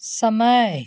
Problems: background sounds at intervals